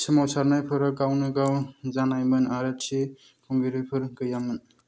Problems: none marked